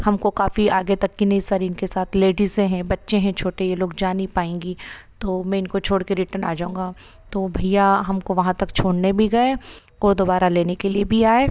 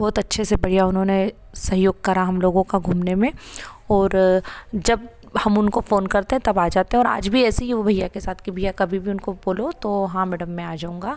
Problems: none marked